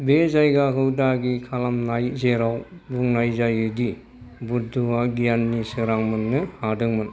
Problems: background conversations at intervals